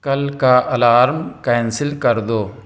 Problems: none marked